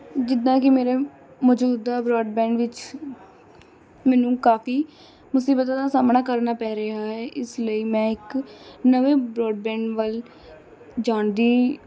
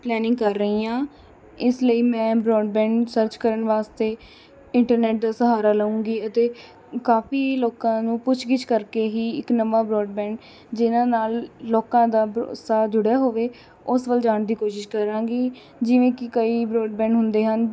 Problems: none marked